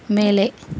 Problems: constant background noise